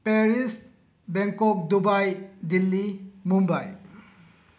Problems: low volume